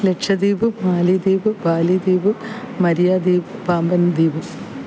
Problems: none marked